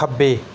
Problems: background sounds at intervals